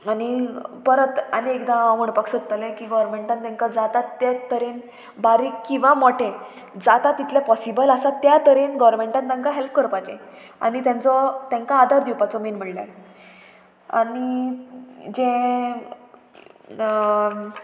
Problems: constant background noise